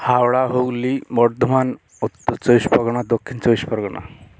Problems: constant background noise